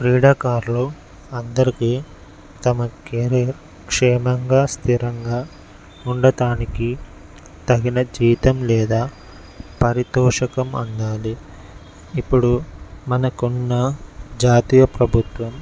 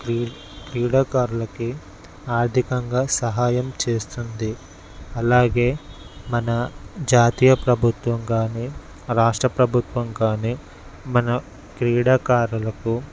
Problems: none marked